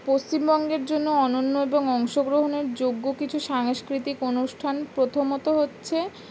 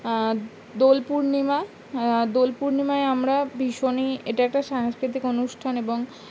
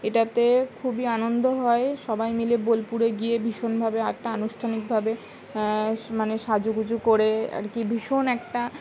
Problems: none marked